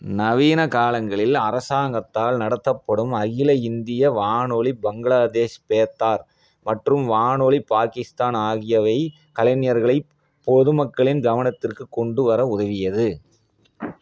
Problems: none marked